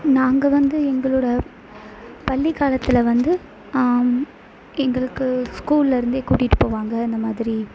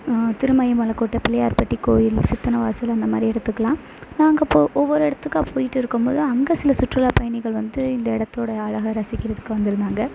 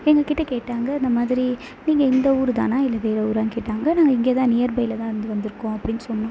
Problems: constant background noise